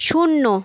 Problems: constant background noise